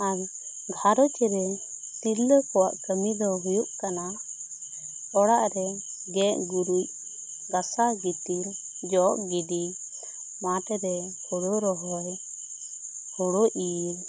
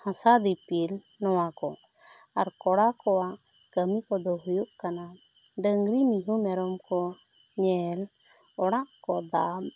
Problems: constant background noise